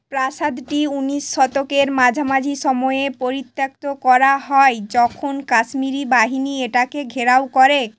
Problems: constant background noise